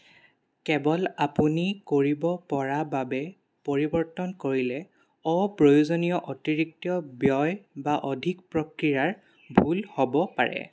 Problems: constant background noise